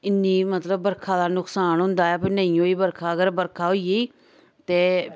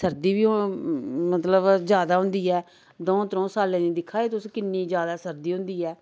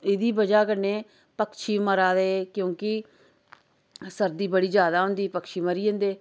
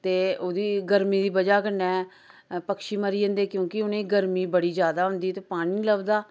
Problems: none marked